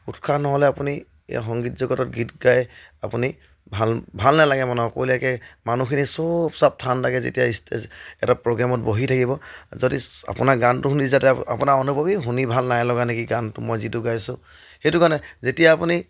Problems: none marked